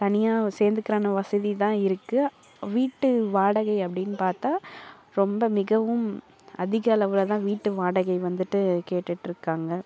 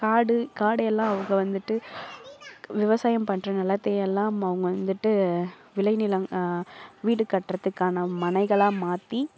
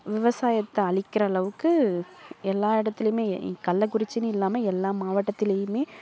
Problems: background sounds at intervals, low volume